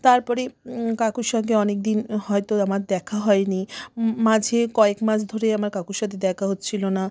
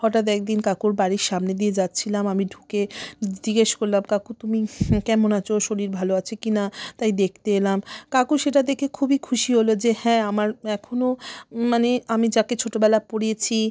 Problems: none marked